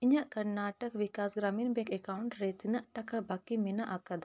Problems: background sounds at intervals